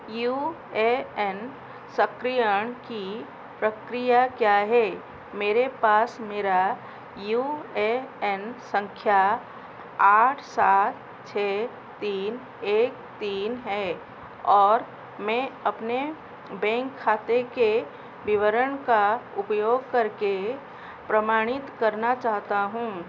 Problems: constant background noise